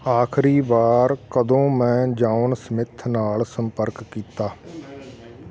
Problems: constant background noise, continuous background conversations